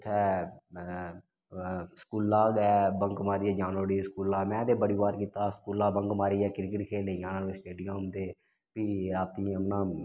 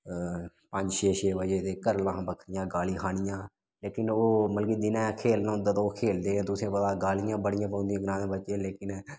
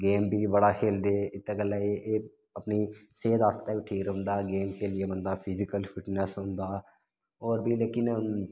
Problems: none marked